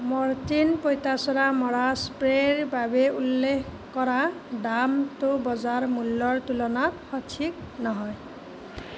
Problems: constant background noise